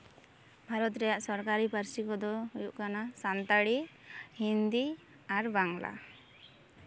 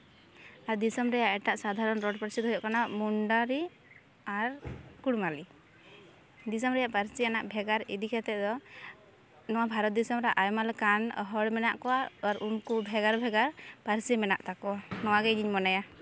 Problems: constant background noise, background conversations at intervals